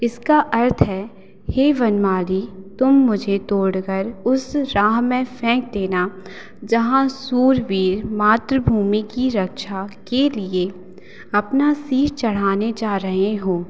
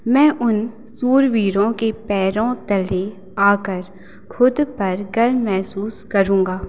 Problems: none marked